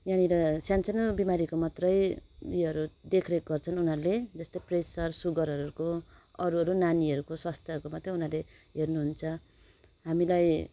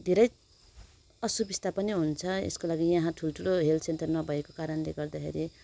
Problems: none marked